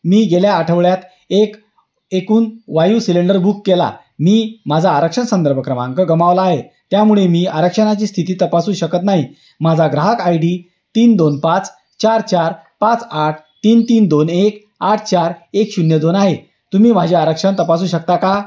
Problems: none marked